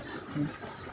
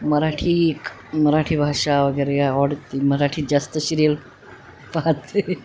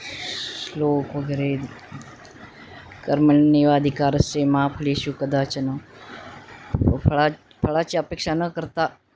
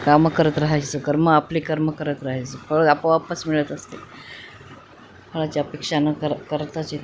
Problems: constant background noise, background conversations at intervals